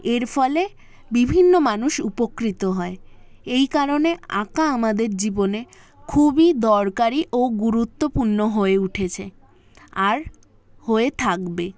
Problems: background sounds at intervals, continuous background conversations